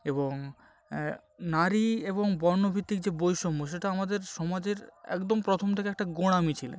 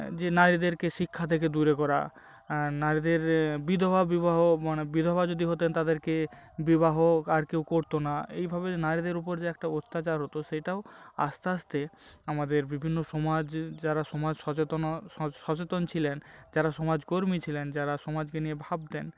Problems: background sounds at intervals